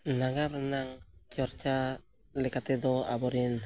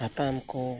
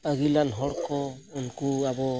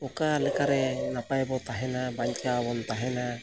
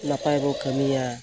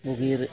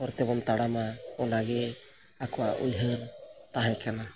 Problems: background sounds at intervals